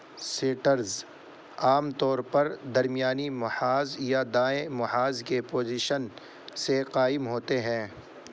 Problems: constant background noise